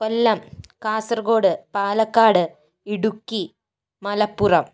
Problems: none marked